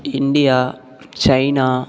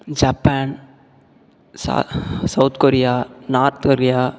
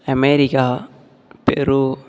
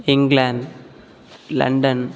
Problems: background sounds at intervals